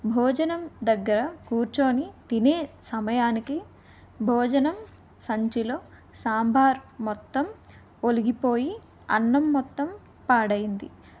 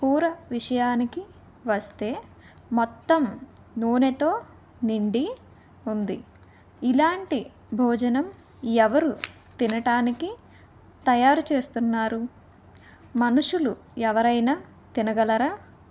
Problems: none marked